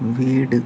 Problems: none marked